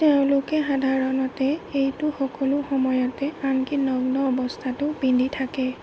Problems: constant background noise